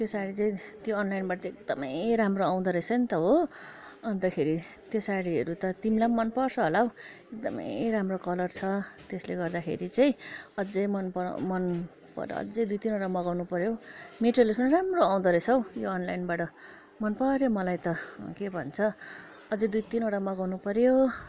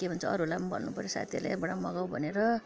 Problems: continuous background conversations